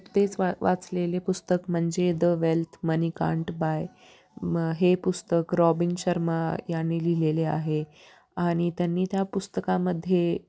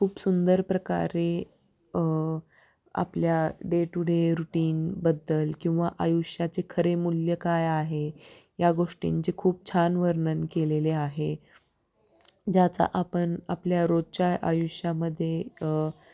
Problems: background sounds at intervals